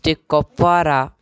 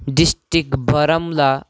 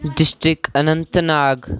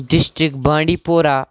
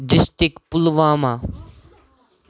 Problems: none marked